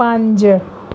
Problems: background sounds at intervals